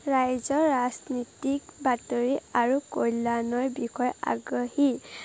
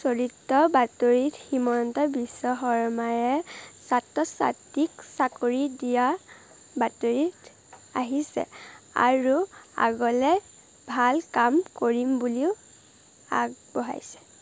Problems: constant background noise